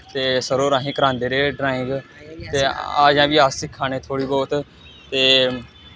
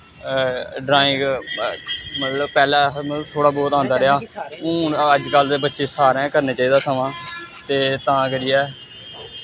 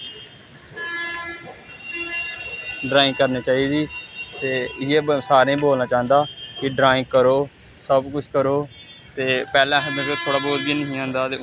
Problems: none marked